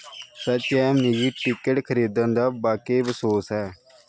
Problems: none marked